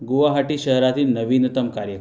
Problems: none marked